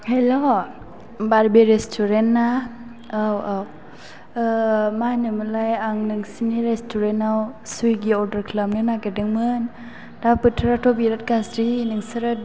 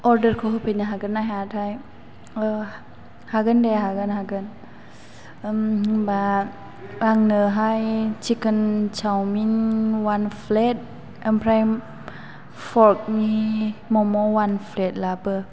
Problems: low volume